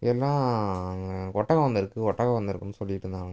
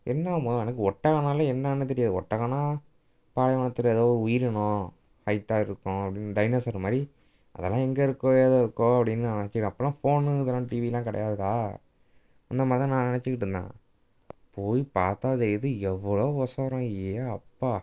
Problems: background sounds at intervals